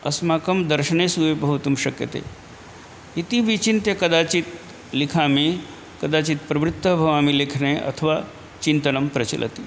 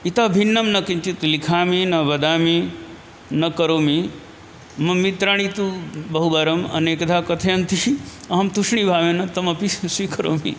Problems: none marked